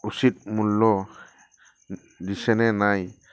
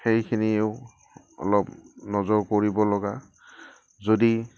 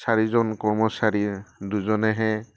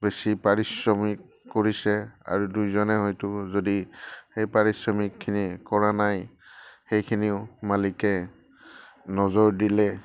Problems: background sounds at intervals